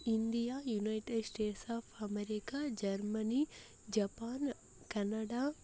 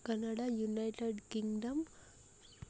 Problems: low volume